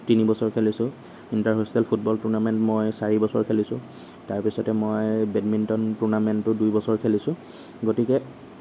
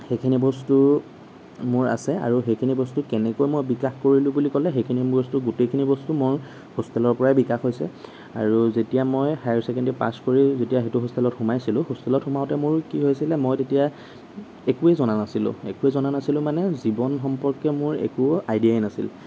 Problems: none marked